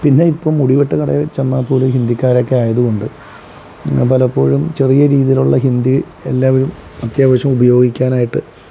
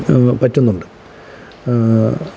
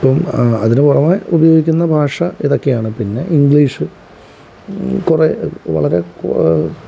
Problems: none marked